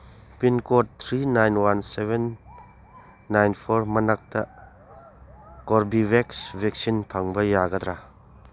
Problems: none marked